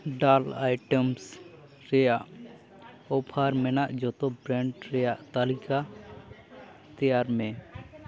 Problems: continuous background conversations